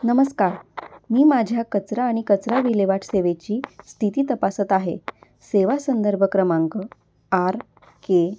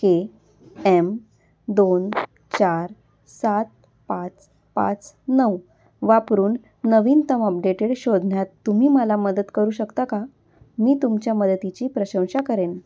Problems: constant background noise